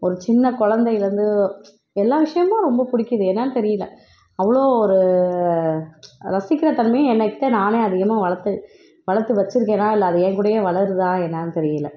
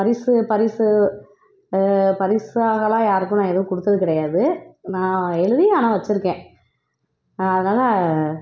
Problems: background sounds at intervals